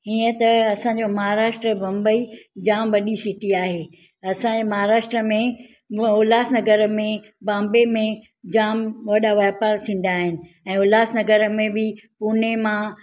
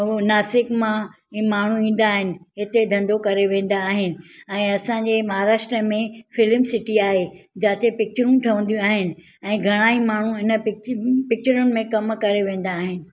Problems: none marked